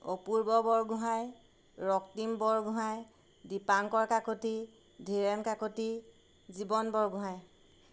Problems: none marked